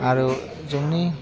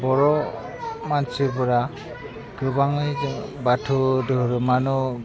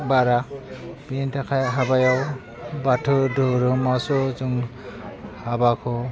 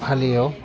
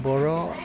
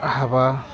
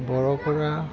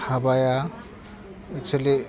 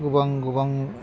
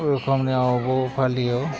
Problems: constant background noise, background conversations at intervals, low volume